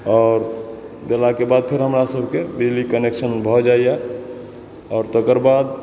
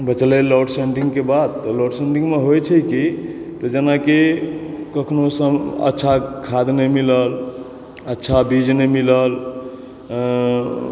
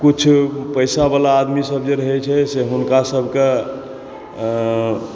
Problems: background sounds at intervals